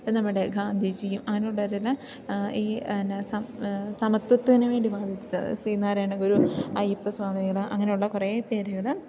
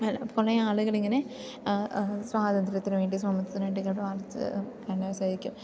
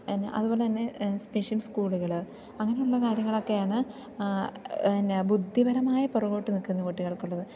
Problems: continuous background conversations, low volume